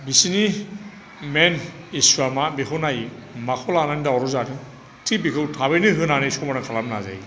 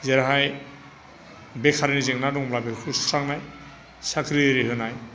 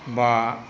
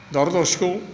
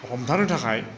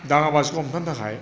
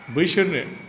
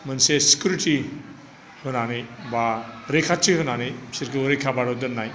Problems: constant background noise